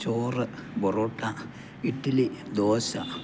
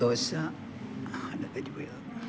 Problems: background conversations at intervals